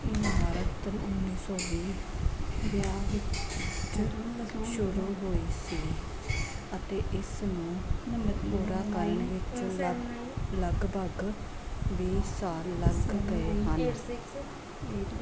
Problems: constant background noise, background conversations at intervals